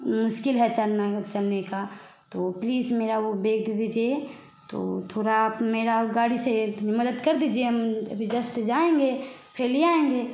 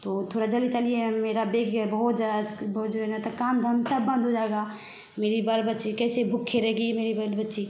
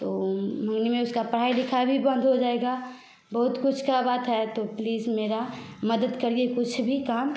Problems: background sounds at intervals